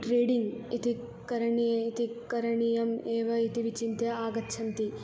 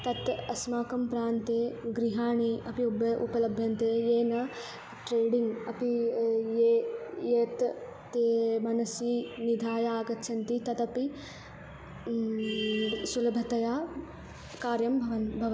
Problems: constant background noise